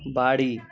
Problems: constant background noise, continuous background conversations